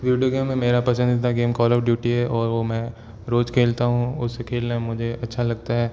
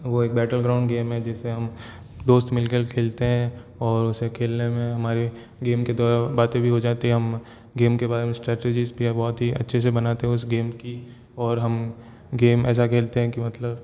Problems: none marked